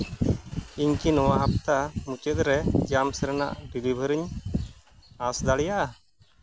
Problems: background sounds at intervals